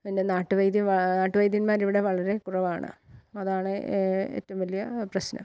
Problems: none marked